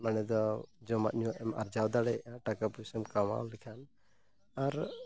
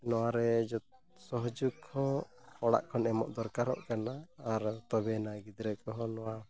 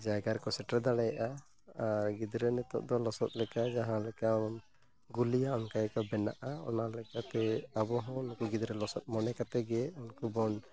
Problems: background sounds at intervals